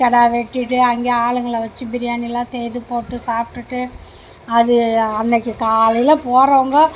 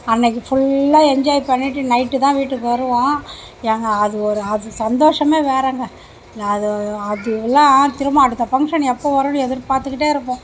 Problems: none marked